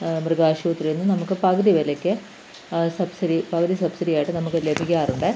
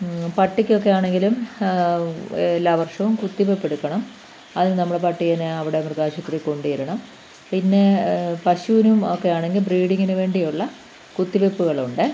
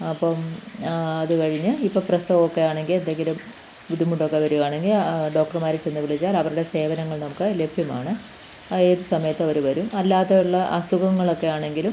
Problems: none marked